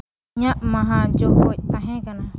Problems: background sounds at intervals